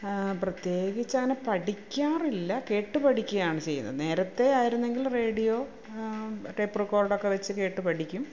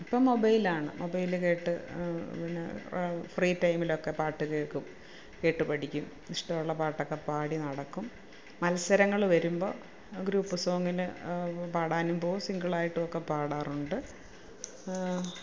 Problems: none marked